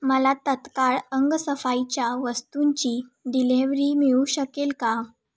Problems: none marked